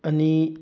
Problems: low volume